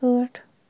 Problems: constant background noise, low volume